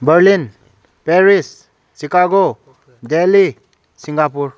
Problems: background sounds at intervals